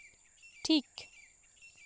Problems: background sounds at intervals